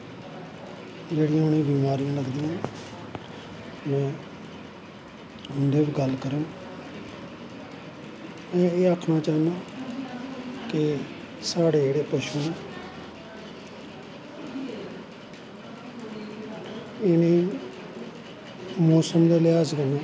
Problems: constant background noise, echo